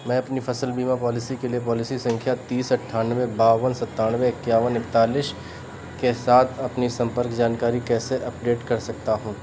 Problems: background sounds at intervals